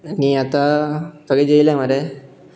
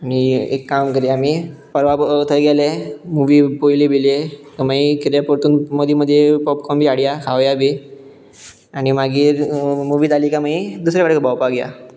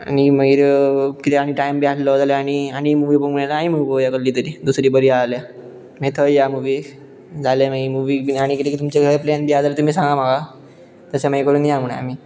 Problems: background sounds at intervals